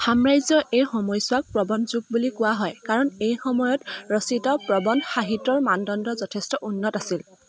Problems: background sounds at intervals